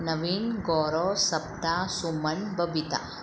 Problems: constant background noise